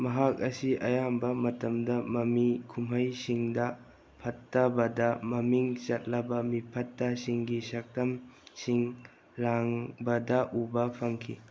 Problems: low volume